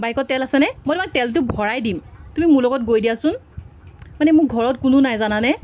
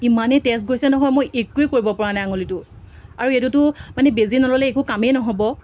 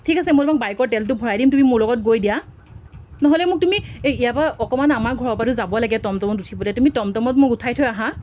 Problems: constant background noise